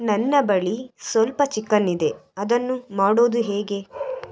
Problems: none marked